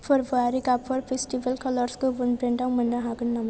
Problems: low volume